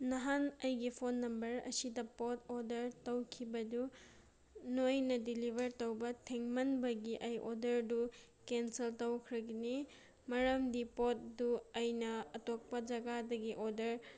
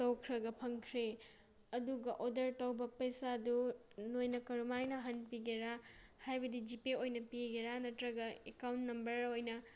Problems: none marked